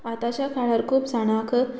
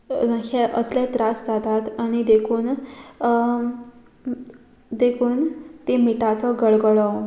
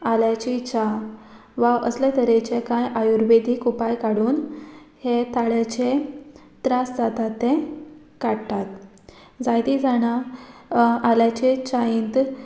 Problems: background sounds at intervals